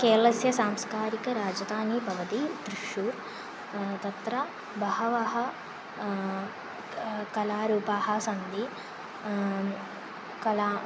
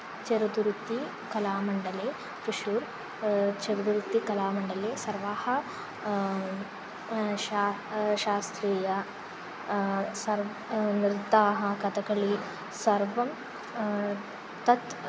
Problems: none marked